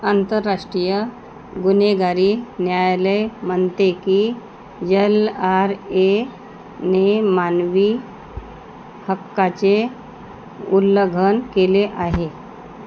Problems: constant background noise